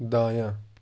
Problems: constant background noise